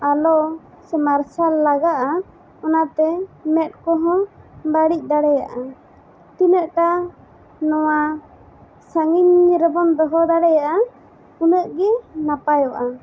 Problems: constant background noise